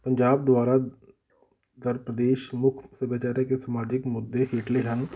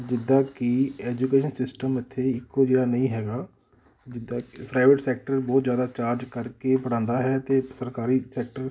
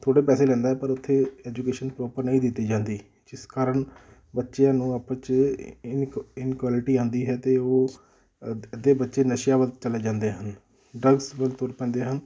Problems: background sounds at intervals